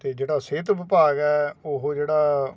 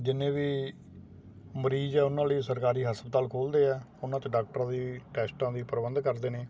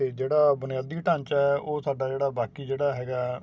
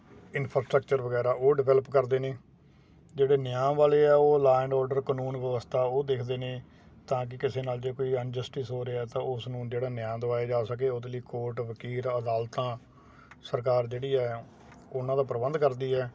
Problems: constant background noise